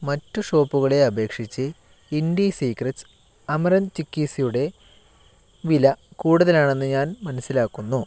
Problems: none marked